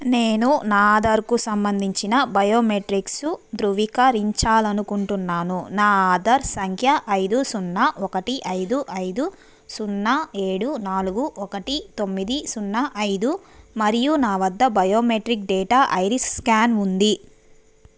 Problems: none marked